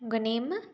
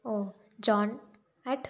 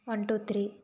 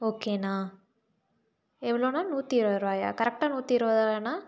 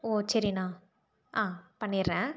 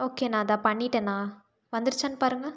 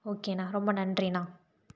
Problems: none marked